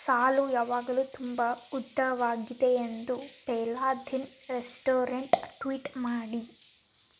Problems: constant background noise